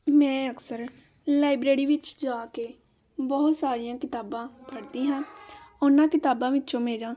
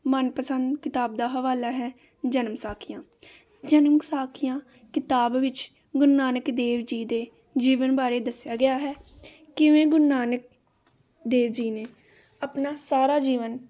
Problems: continuous background conversations